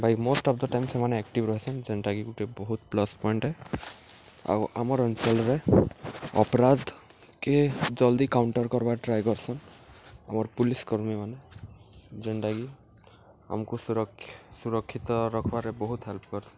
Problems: none marked